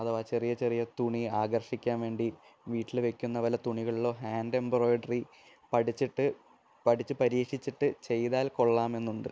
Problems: none marked